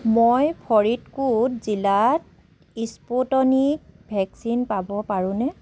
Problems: constant background noise, background conversations at intervals